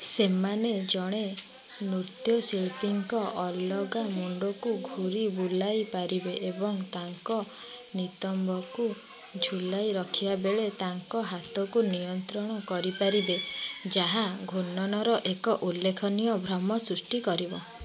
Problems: constant background noise, continuous background conversations